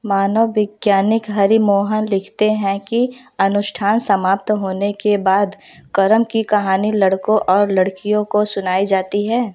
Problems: background sounds at intervals